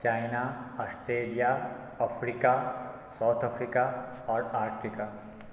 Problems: background sounds at intervals